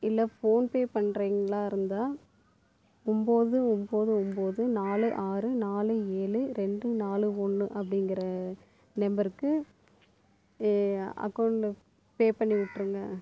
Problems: constant background noise